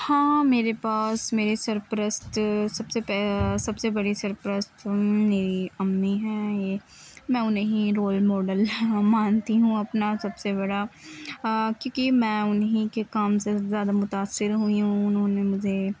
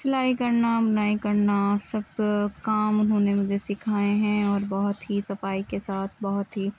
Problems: constant background noise, background conversations at intervals